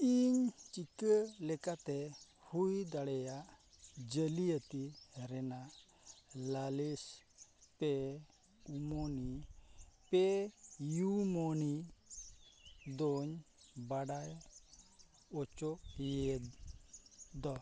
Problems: constant background noise